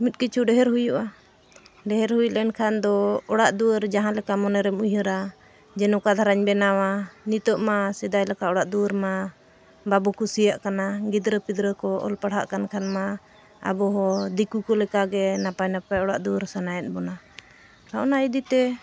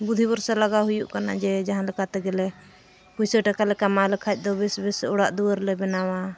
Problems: constant background noise